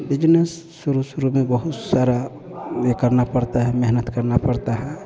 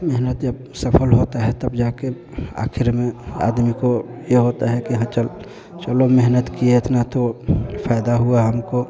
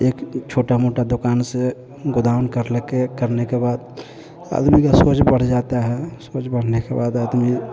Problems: constant background noise, continuous background conversations